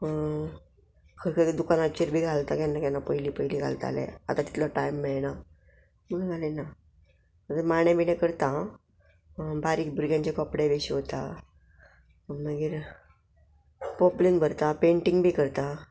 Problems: background sounds at intervals